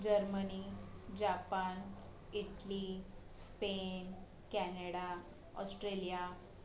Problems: constant background noise, background conversations at intervals